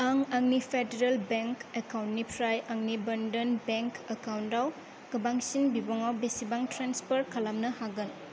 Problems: low volume